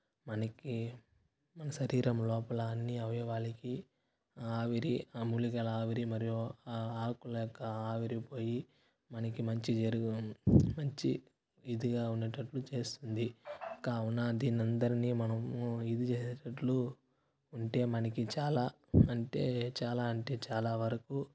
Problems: constant background noise, low volume